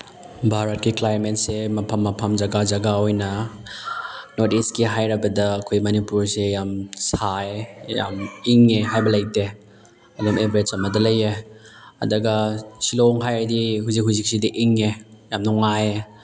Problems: background sounds at intervals, background conversations at intervals